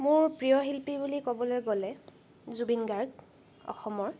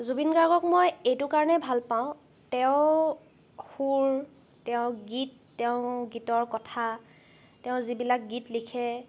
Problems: background sounds at intervals